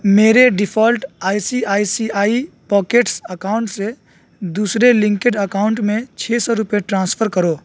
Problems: constant background noise